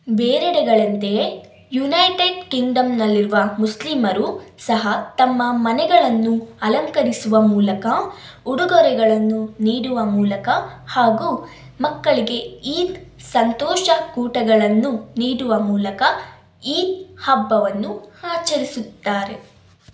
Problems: none marked